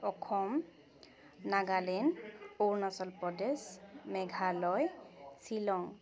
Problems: constant background noise, continuous background conversations